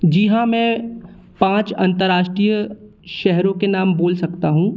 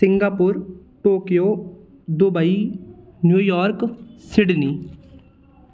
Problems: none marked